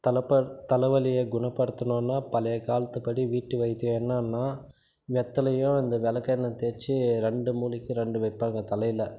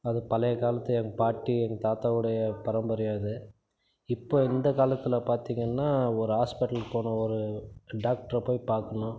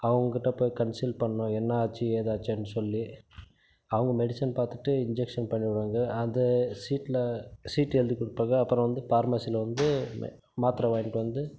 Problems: constant background noise